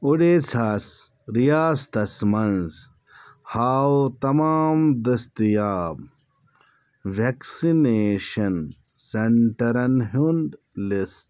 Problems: none marked